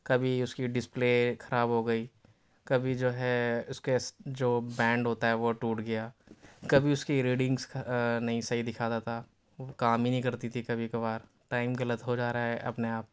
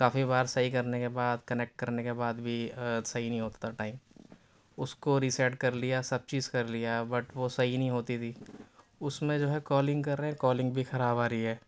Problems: background sounds at intervals